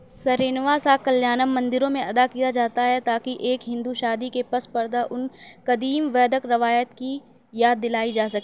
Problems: none marked